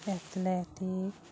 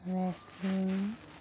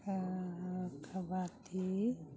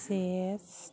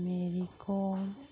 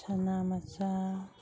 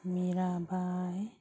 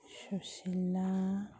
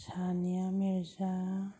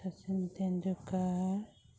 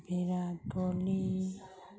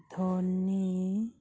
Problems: background sounds at intervals, background conversations at intervals